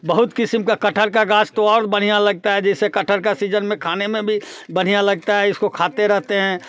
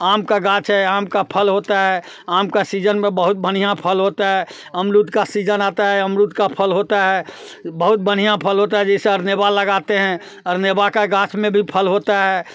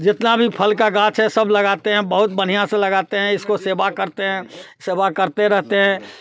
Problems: none marked